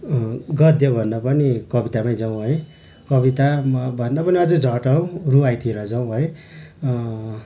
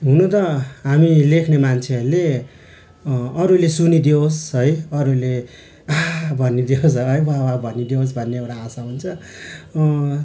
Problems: constant background noise